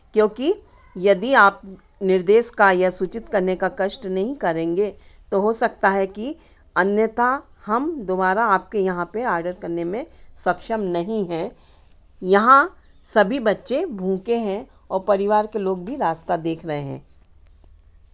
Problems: none marked